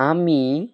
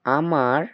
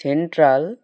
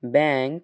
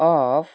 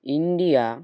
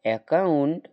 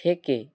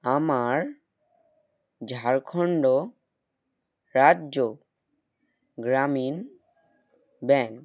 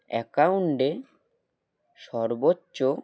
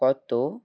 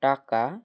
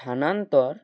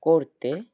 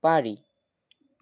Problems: none marked